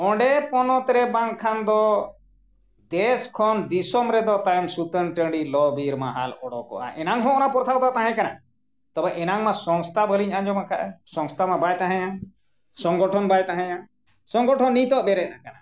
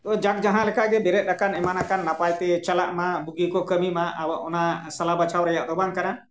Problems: none marked